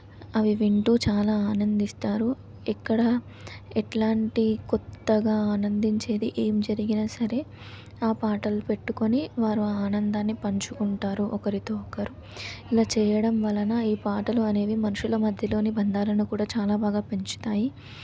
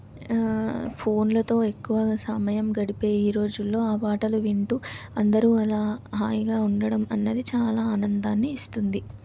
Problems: none marked